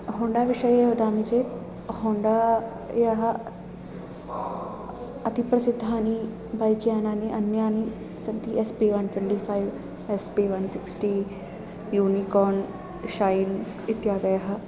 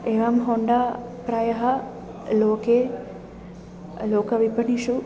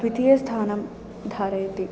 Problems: constant background noise